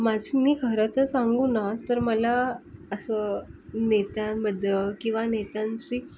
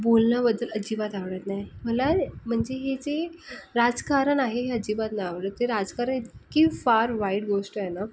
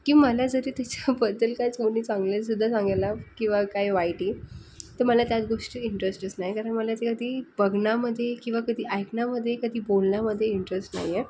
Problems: background sounds at intervals